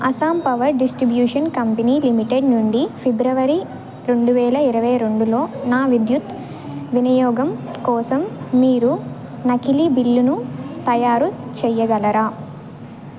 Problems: none marked